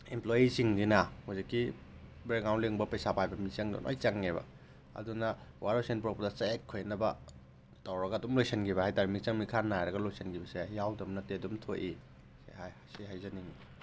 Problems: background sounds at intervals